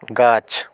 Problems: none marked